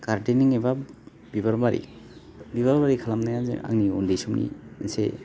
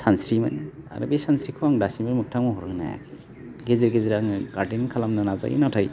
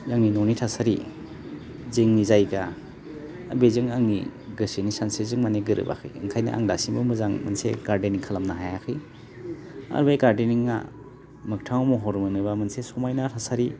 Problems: none marked